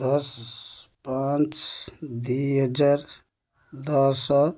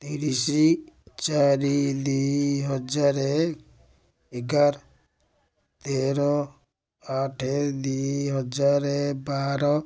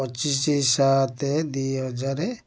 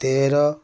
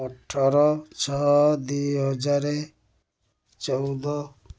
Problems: low volume